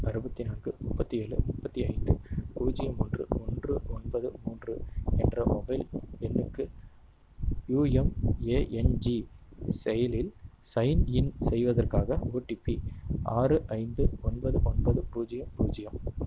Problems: constant background noise